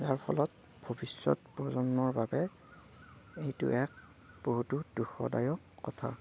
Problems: none marked